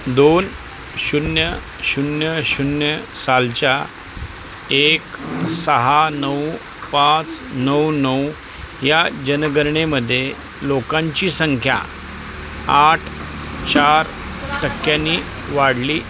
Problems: constant background noise, background conversations at intervals